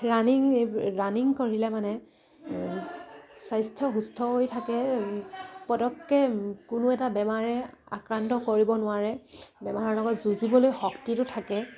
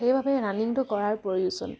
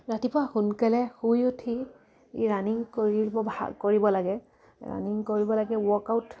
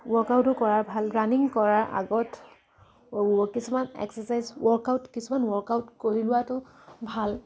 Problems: none marked